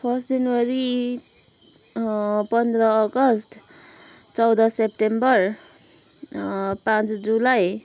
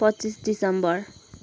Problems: none marked